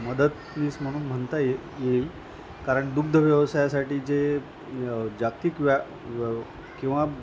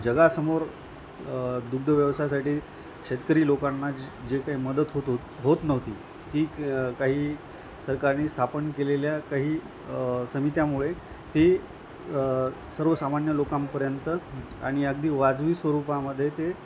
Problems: constant background noise, background conversations at intervals